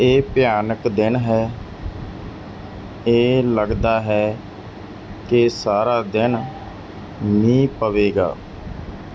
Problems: none marked